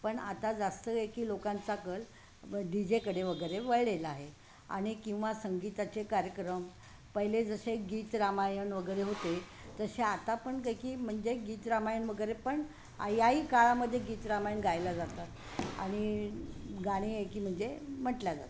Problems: constant background noise